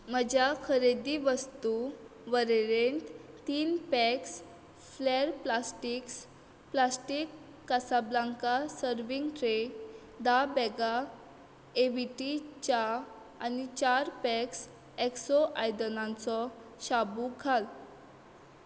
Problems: none marked